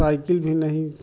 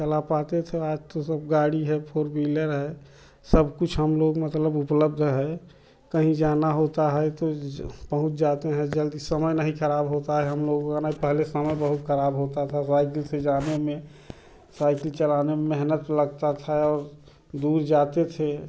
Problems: constant background noise